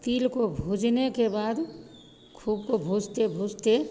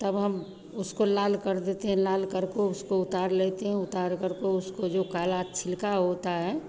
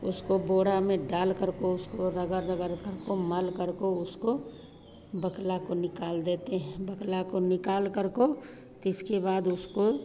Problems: constant background noise, background conversations at intervals